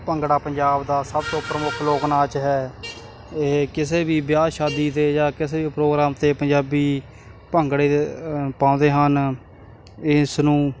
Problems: constant background noise